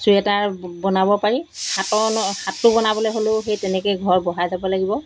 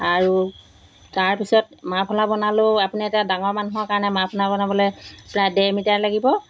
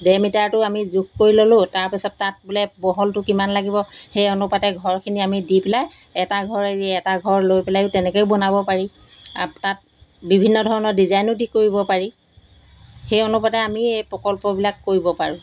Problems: constant background noise